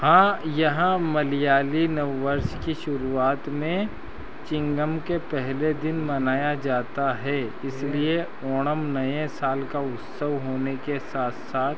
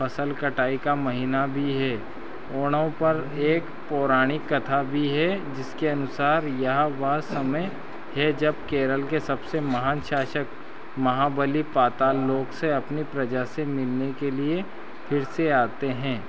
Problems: constant background noise